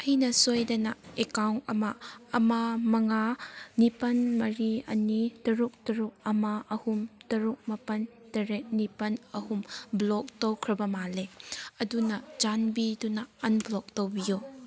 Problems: background sounds at intervals